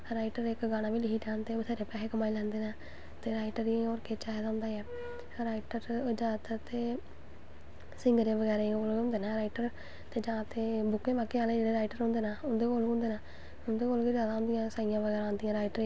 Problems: constant background noise